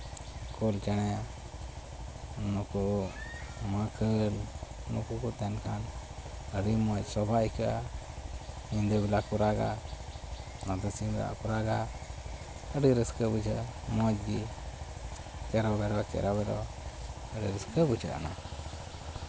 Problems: constant background noise, background conversations at intervals